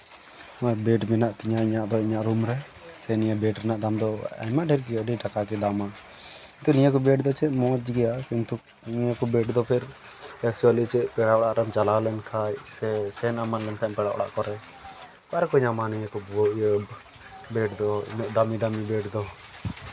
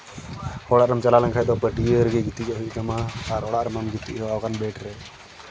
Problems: constant background noise